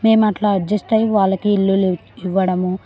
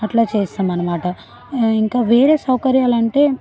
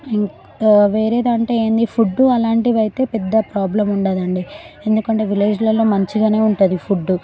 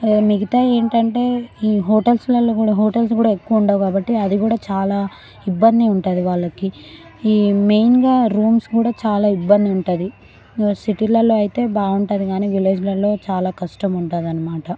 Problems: background conversations at intervals